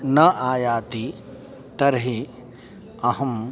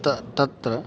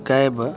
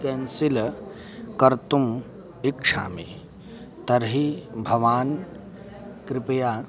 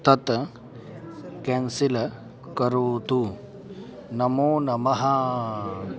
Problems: constant background noise, continuous background conversations